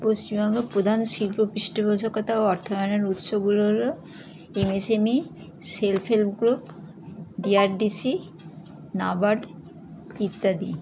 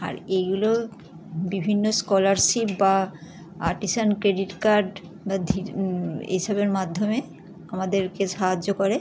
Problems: continuous background conversations